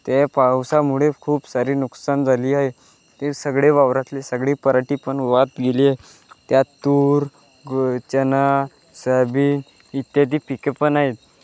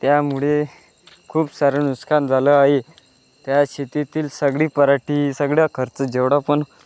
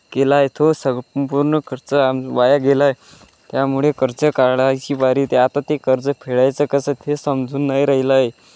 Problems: background sounds at intervals